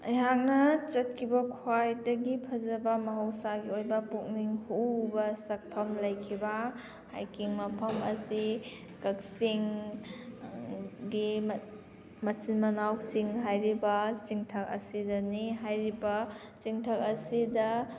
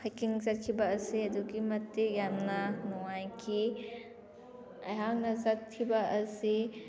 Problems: background sounds at intervals